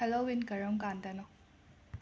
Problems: low volume